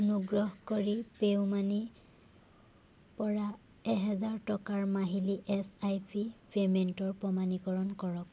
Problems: background sounds at intervals